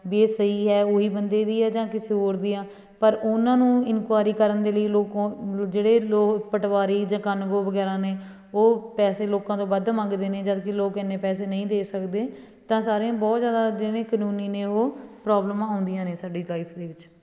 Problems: background sounds at intervals